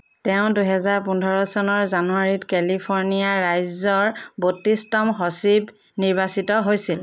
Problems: none marked